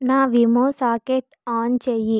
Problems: none marked